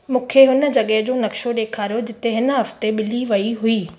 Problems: background sounds at intervals, echo